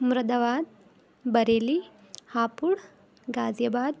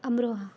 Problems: constant background noise, continuous background conversations